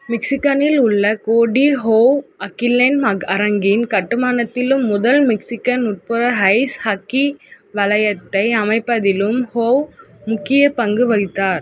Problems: constant background noise